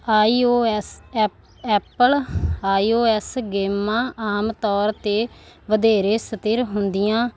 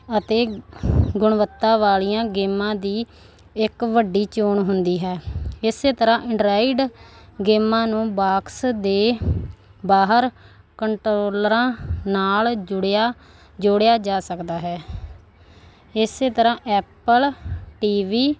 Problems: none marked